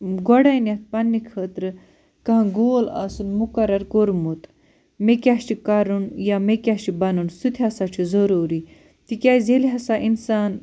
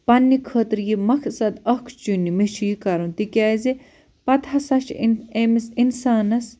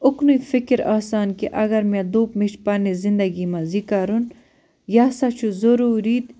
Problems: none marked